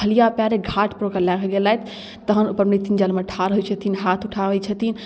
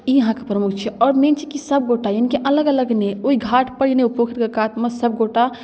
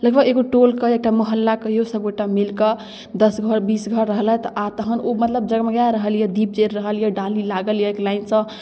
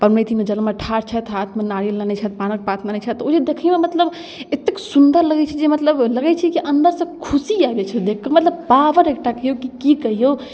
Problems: none marked